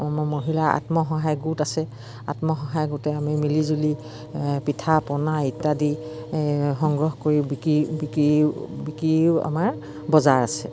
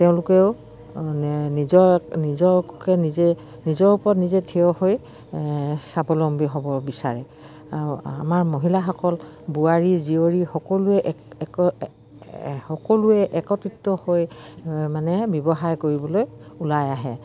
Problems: none marked